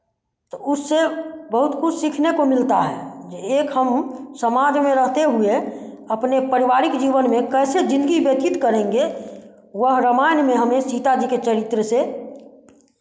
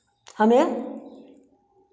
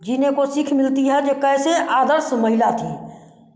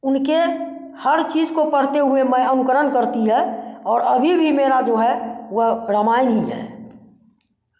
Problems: none marked